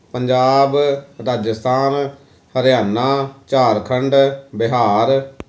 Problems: none marked